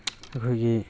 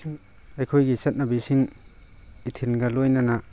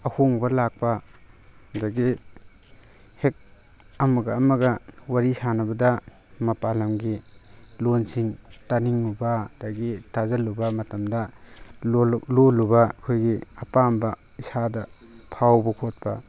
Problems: constant background noise